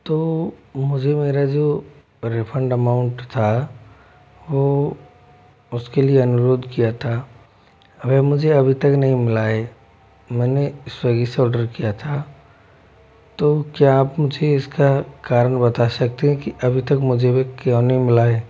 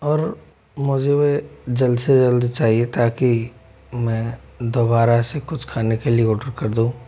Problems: background sounds at intervals